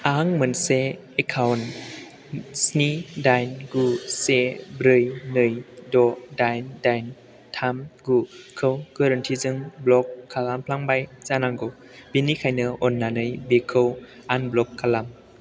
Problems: constant background noise